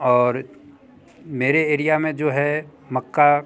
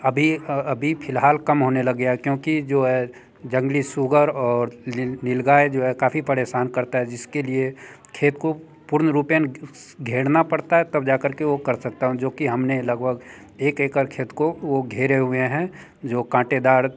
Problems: background conversations at intervals